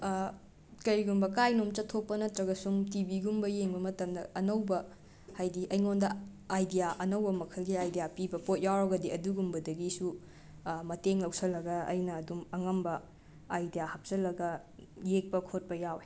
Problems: background sounds at intervals